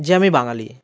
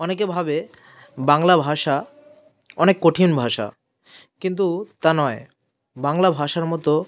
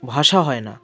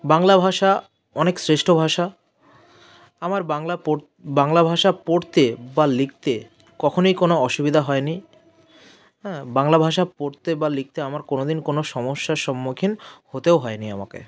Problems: none marked